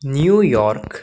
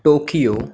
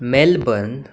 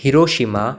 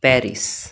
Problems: background sounds at intervals